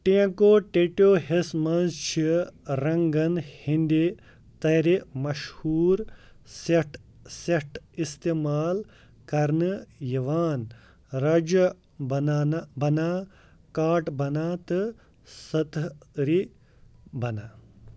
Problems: background sounds at intervals